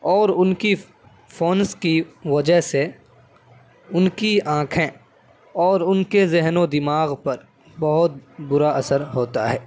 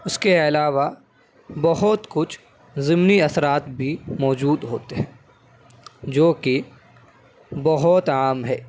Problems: background sounds at intervals